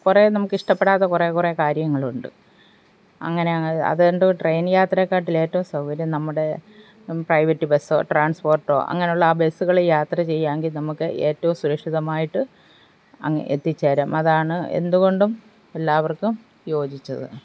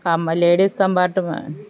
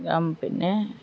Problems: none marked